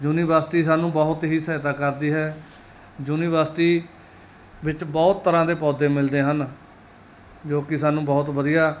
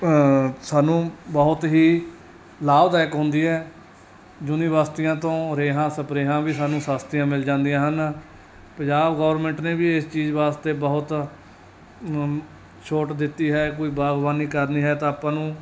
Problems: none marked